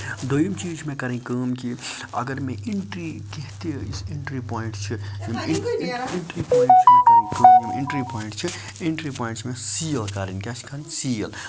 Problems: constant background noise, background conversations at intervals